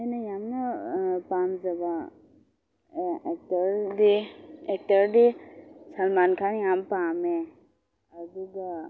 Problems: low volume